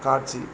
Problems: constant background noise